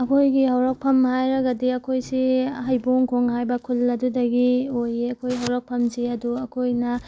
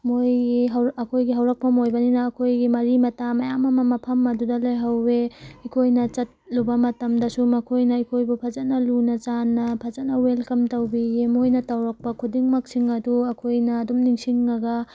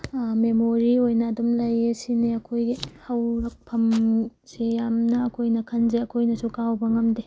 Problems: background sounds at intervals